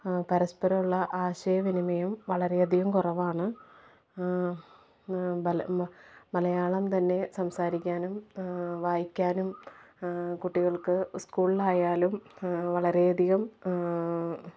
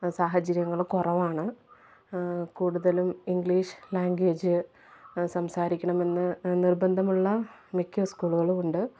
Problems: background sounds at intervals, low volume